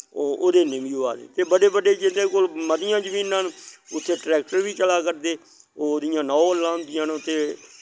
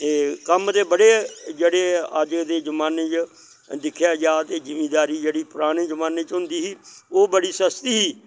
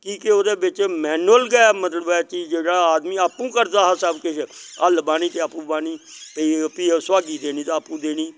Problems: none marked